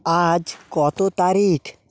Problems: none marked